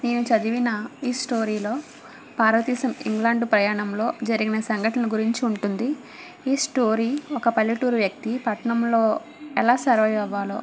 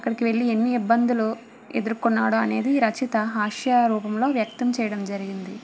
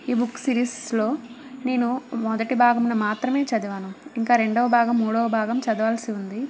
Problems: constant background noise